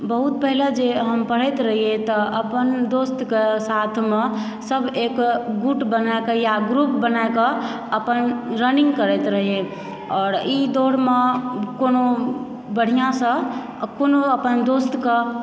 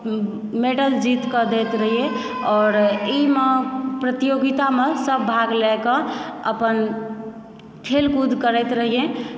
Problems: background sounds at intervals